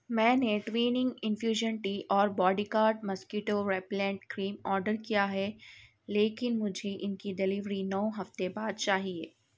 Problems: none marked